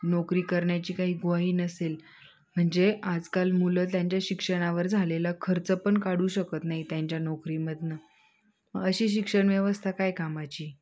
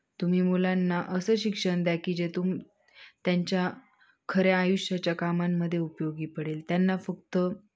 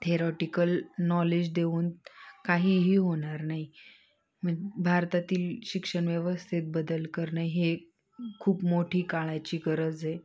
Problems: background sounds at intervals, background conversations at intervals